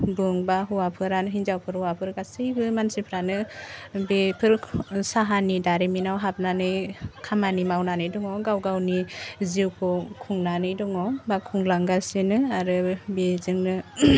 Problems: none marked